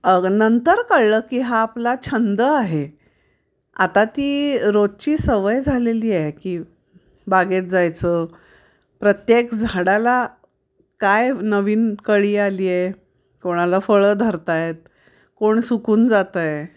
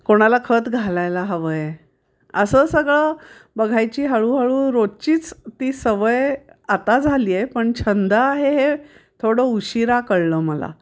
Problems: constant background noise